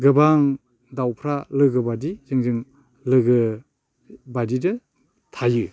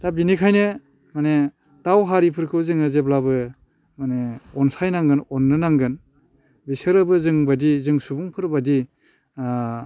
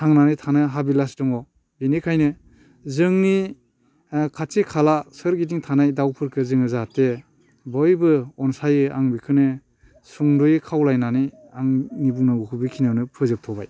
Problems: constant background noise